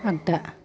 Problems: background conversations at intervals